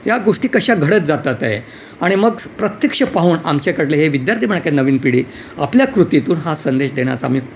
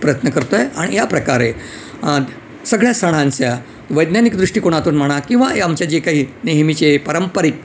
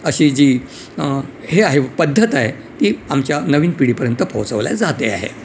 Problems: none marked